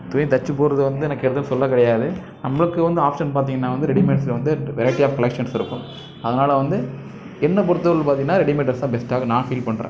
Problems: constant background noise, background conversations at intervals